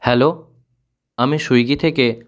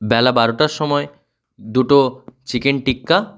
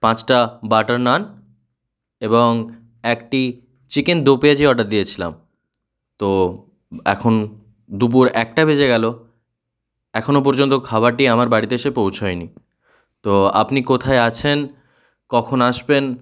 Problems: none marked